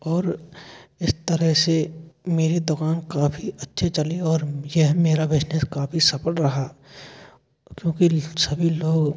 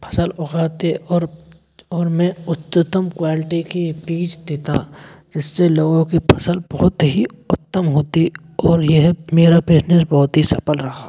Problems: constant background noise, echo